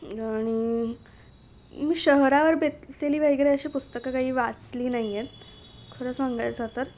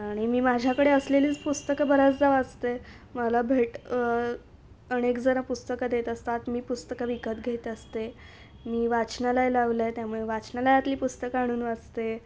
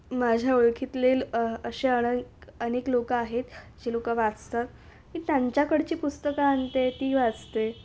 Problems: none marked